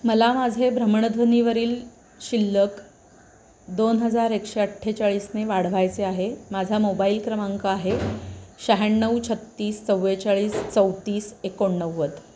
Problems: none marked